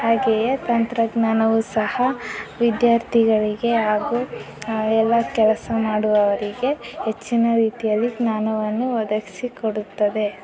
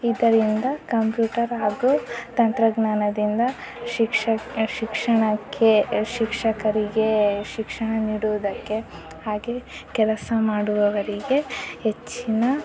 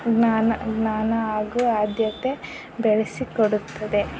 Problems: background sounds at intervals